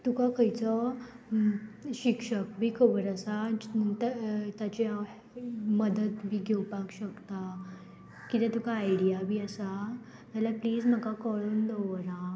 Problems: constant background noise